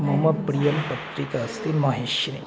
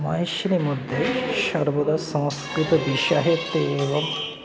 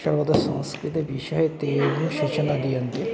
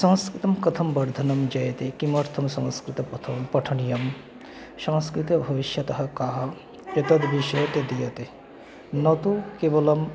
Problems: constant background noise, continuous background conversations